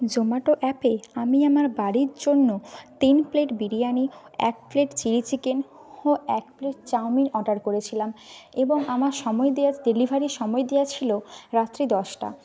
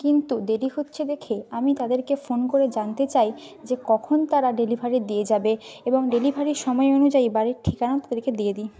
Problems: none marked